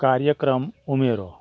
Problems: none marked